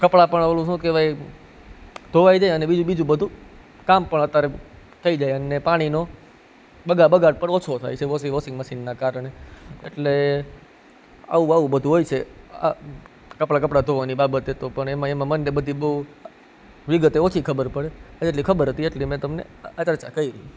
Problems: none marked